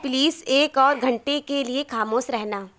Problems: background conversations at intervals